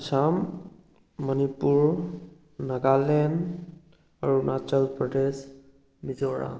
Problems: none marked